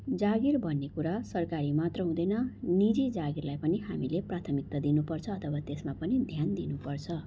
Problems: background sounds at intervals